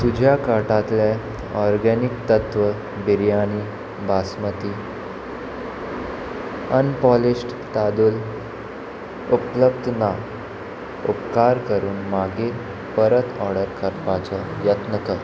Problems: constant background noise